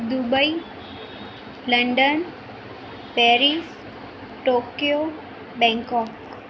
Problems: constant background noise